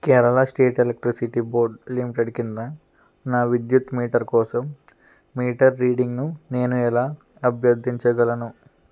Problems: constant background noise